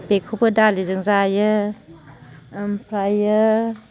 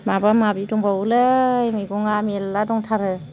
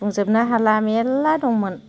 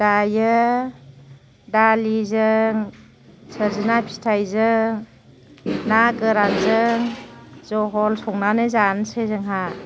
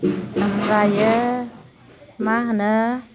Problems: constant background noise, low volume